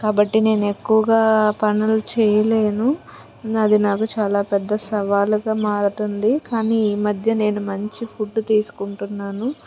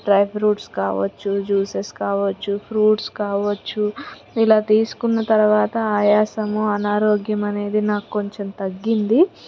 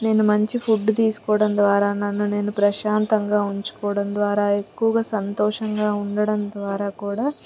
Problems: constant background noise, background conversations at intervals